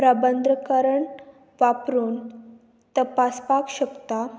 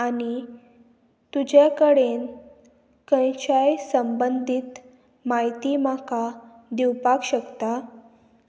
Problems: constant background noise